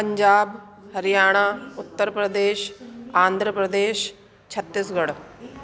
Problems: constant background noise